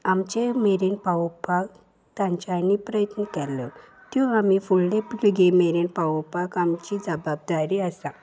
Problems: background sounds at intervals